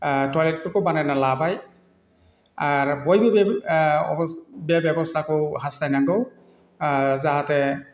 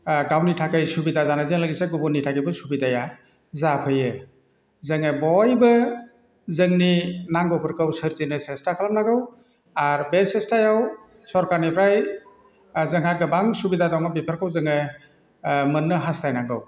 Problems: constant background noise